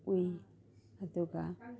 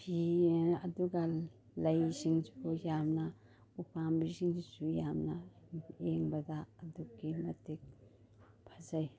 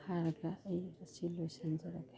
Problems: none marked